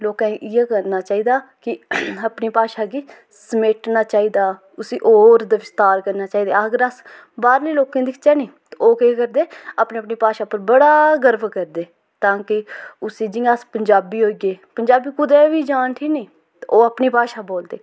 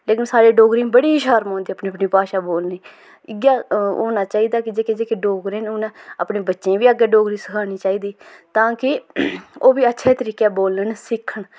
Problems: none marked